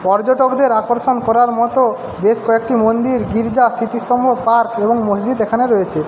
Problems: constant background noise